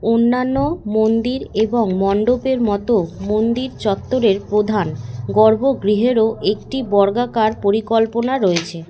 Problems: background sounds at intervals